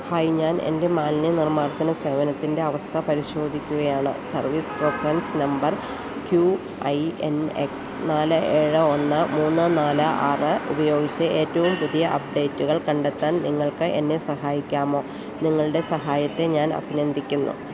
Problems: constant background noise